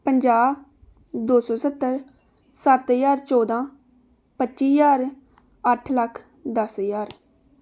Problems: none marked